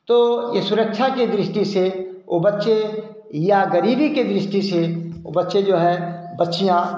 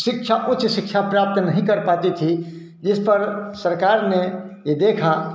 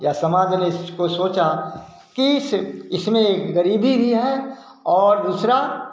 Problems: none marked